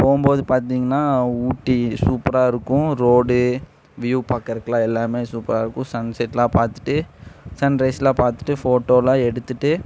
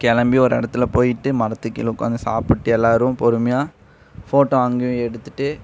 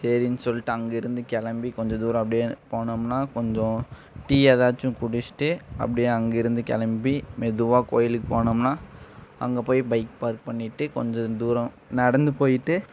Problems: none marked